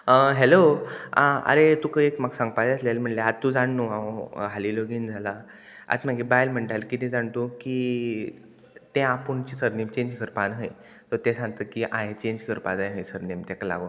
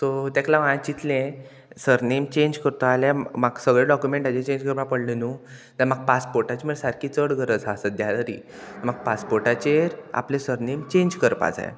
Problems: constant background noise